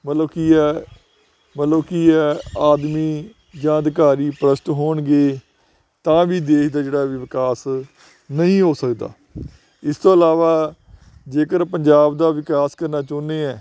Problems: none marked